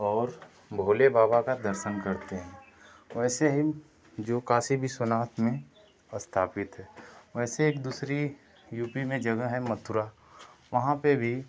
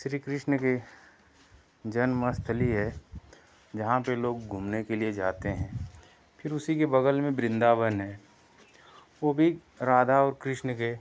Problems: none marked